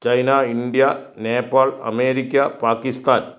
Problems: none marked